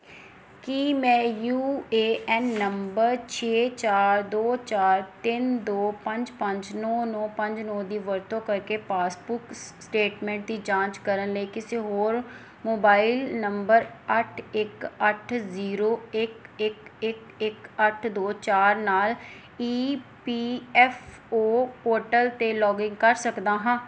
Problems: background sounds at intervals